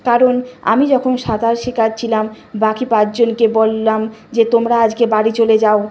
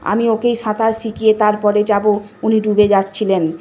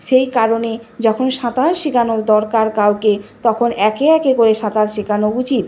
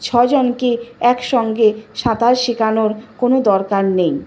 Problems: constant background noise